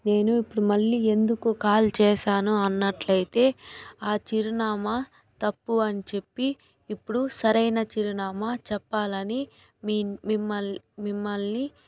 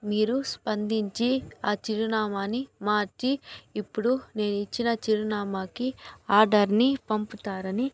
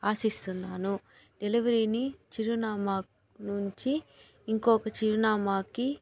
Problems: background conversations at intervals